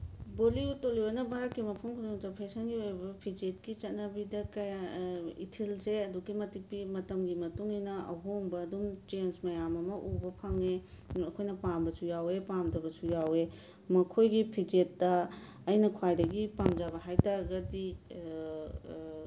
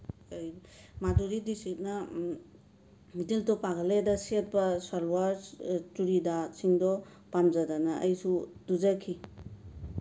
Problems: background sounds at intervals, low volume